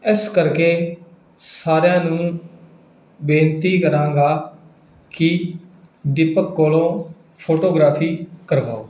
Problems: none marked